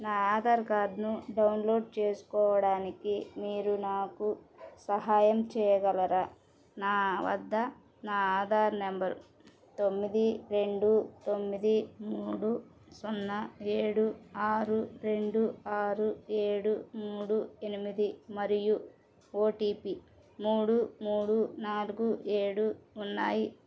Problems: none marked